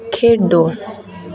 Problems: constant background noise